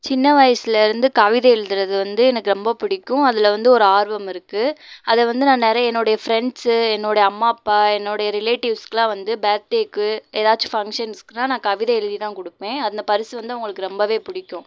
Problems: none marked